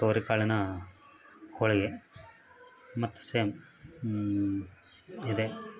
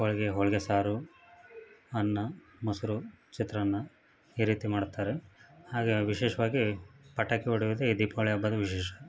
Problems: none marked